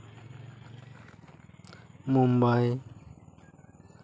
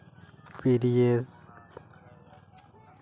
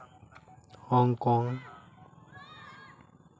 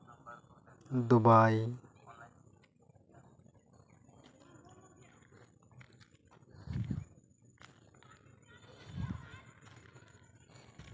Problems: background sounds at intervals, continuous background conversations